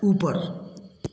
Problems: constant background noise, echo